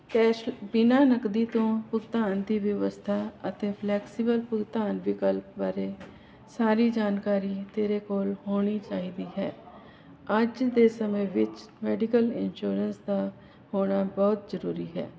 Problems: none marked